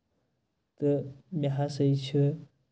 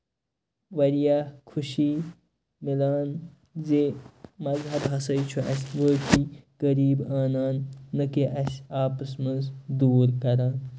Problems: background sounds at intervals